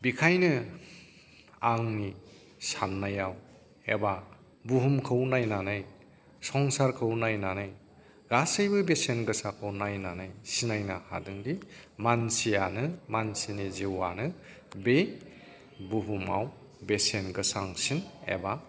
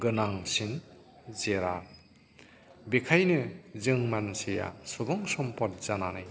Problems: background sounds at intervals, background conversations at intervals